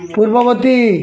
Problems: constant background noise, continuous background conversations